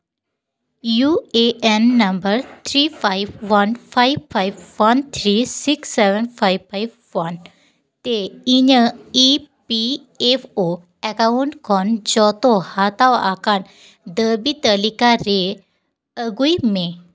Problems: none marked